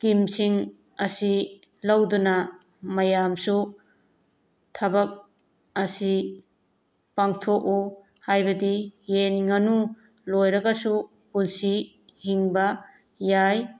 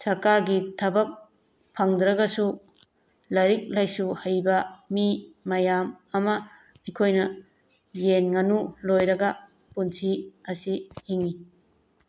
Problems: background sounds at intervals